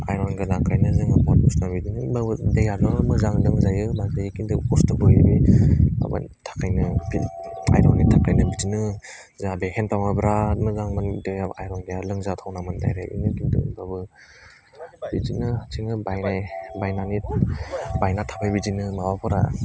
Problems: none marked